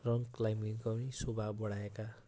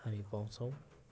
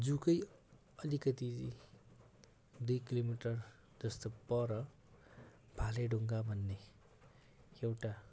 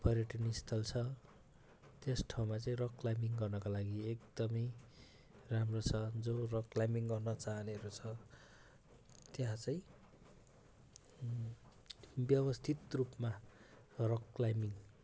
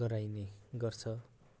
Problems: constant background noise